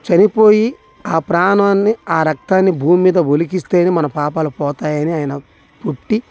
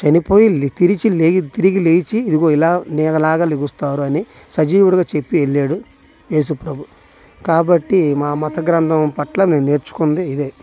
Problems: none marked